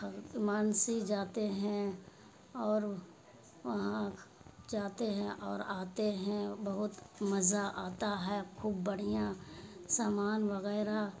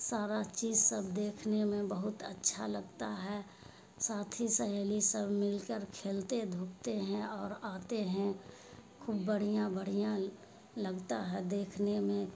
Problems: constant background noise